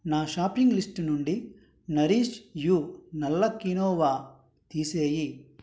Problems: none marked